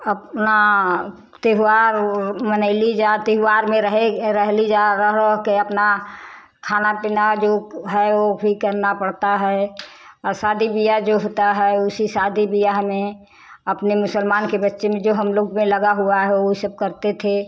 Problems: none marked